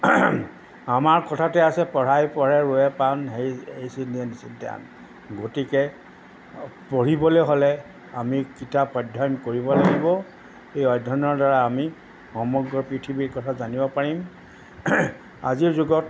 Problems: background sounds at intervals